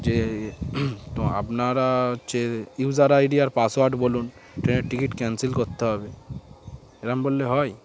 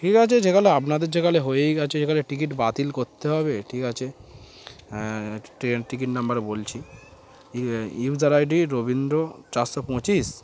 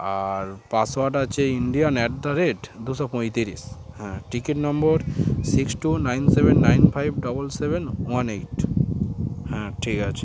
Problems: background sounds at intervals